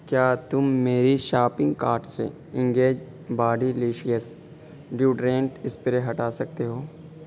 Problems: constant background noise